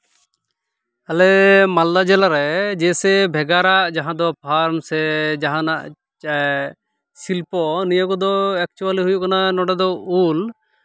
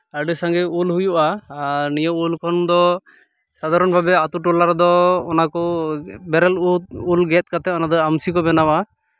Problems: background sounds at intervals